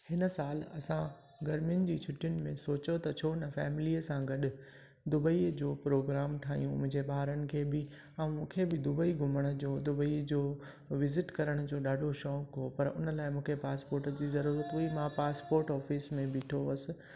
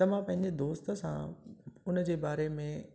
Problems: constant background noise, echo